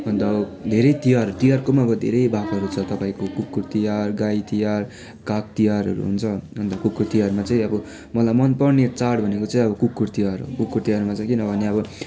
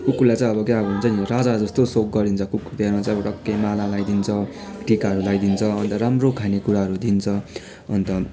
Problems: constant background noise, continuous background conversations